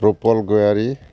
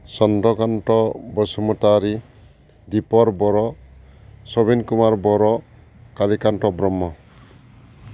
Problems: constant background noise